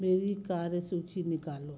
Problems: none marked